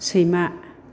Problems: constant background noise